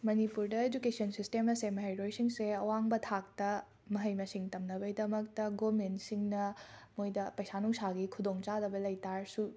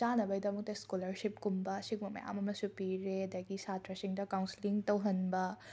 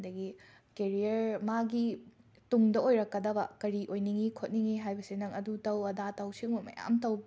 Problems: none marked